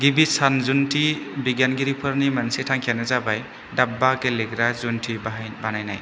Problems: constant background noise